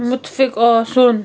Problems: none marked